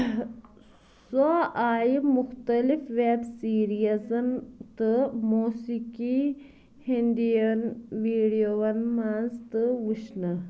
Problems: background conversations at intervals